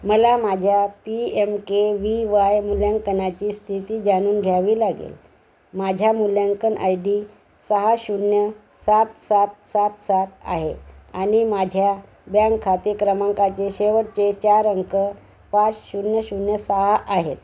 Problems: none marked